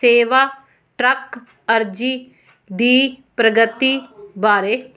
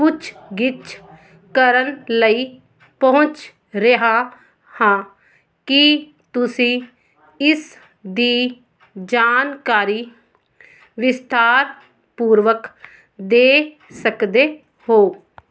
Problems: none marked